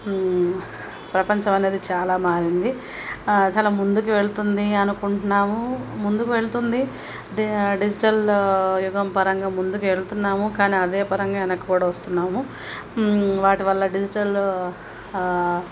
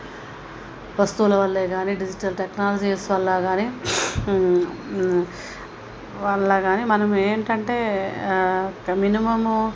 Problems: constant background noise